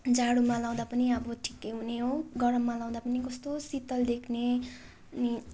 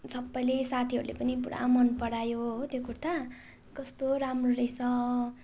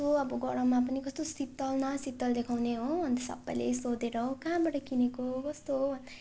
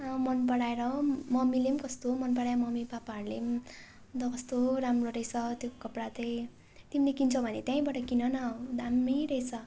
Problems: constant background noise